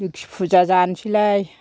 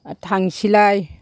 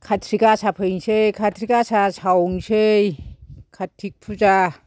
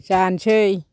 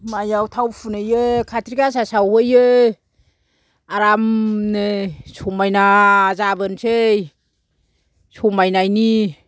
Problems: none marked